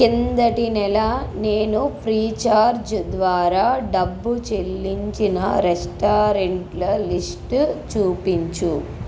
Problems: constant background noise